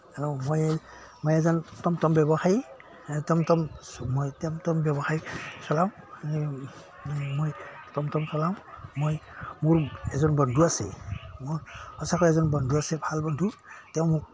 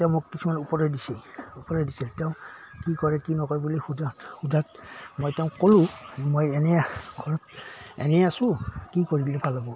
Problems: background sounds at intervals